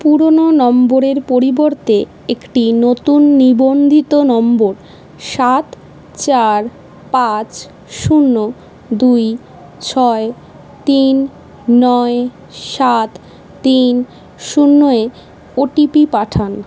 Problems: none marked